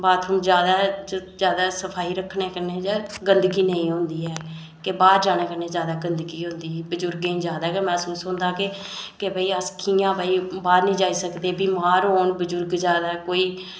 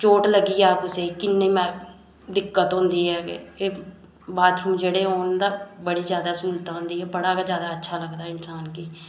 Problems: none marked